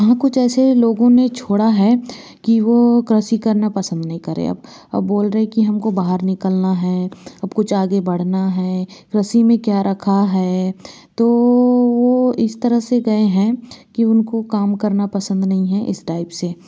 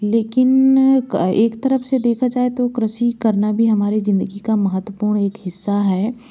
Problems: constant background noise